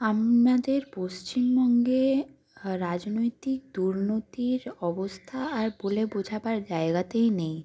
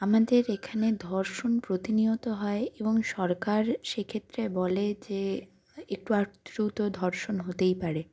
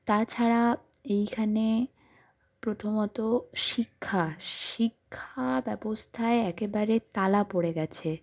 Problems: constant background noise